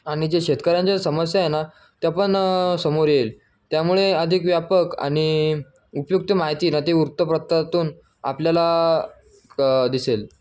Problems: background sounds at intervals